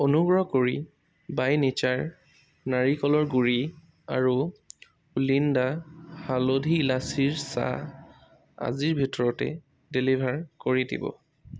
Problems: none marked